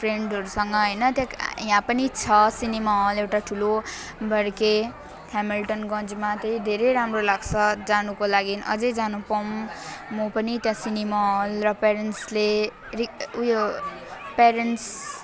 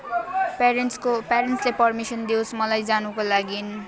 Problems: constant background noise, continuous background conversations